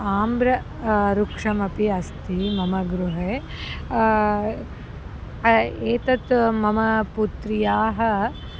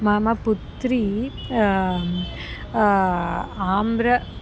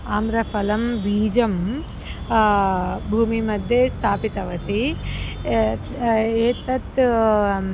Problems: constant background noise